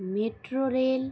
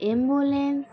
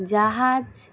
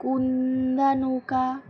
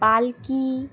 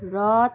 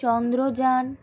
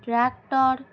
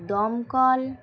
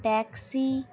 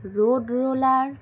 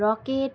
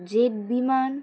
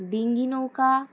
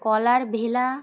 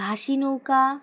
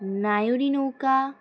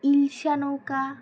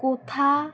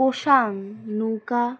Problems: constant background noise, background conversations at intervals